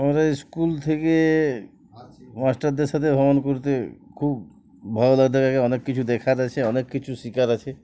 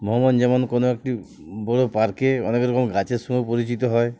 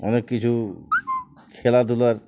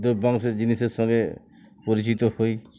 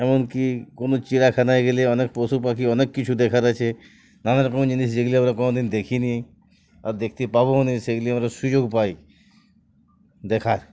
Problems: background sounds at intervals, background conversations at intervals